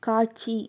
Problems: none marked